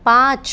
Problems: constant background noise